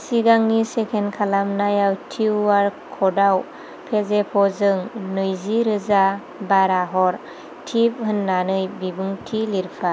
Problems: constant background noise